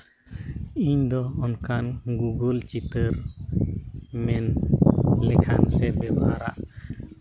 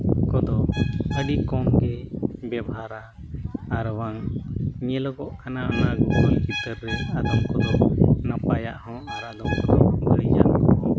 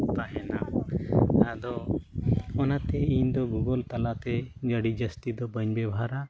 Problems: background sounds at intervals